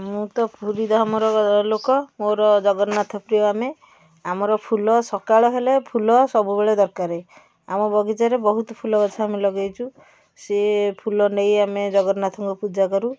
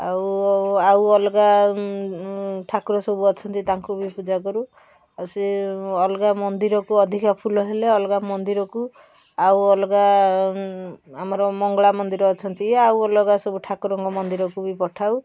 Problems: none marked